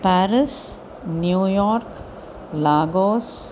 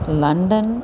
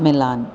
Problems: none marked